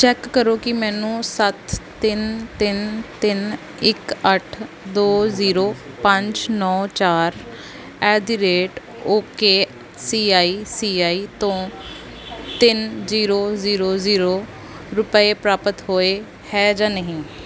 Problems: constant background noise